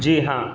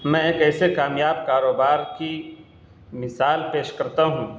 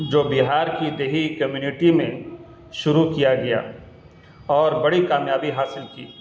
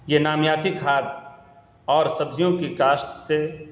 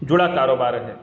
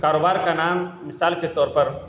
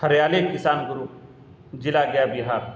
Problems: constant background noise